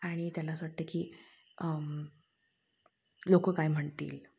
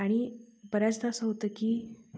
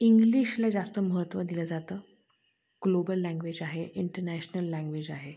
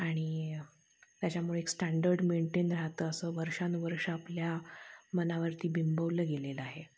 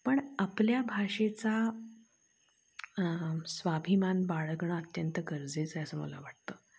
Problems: none marked